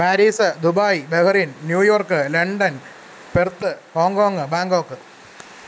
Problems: constant background noise